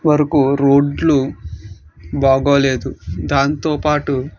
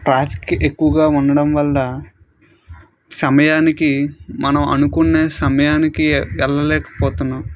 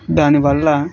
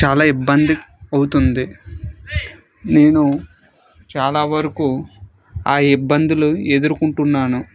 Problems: background conversations at intervals